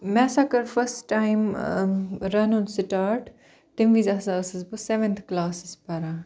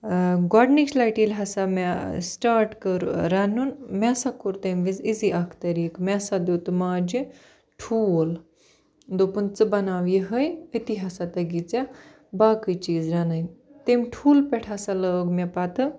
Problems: none marked